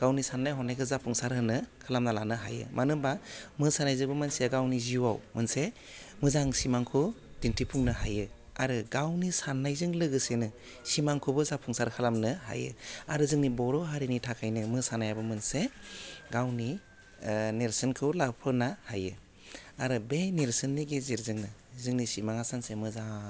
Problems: low volume